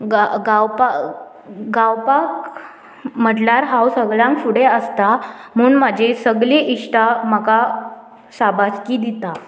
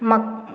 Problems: none marked